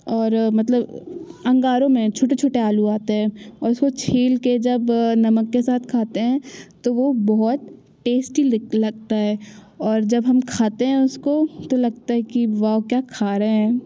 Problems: background sounds at intervals